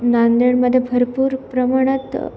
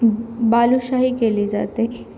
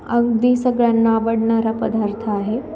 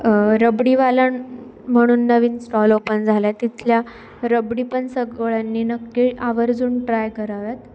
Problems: none marked